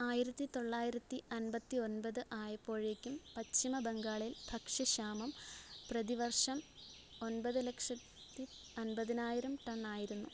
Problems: background sounds at intervals, low volume